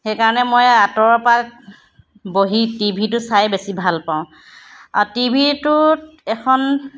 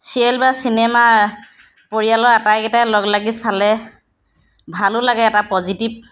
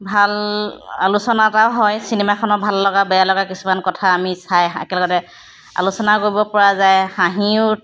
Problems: background sounds at intervals